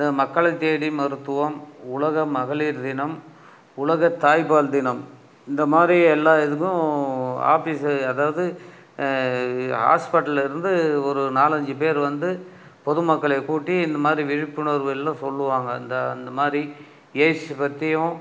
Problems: none marked